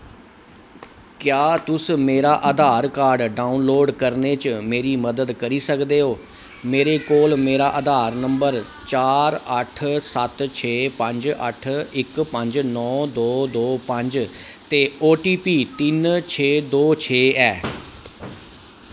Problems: constant background noise